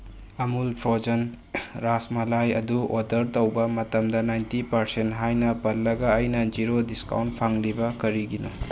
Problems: background sounds at intervals